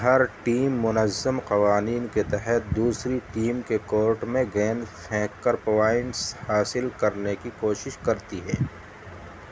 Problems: constant background noise